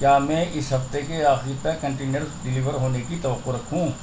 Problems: constant background noise